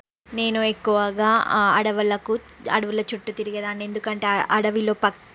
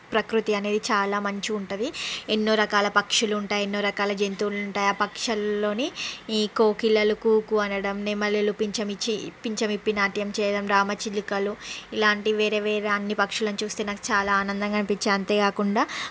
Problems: constant background noise